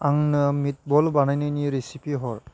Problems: constant background noise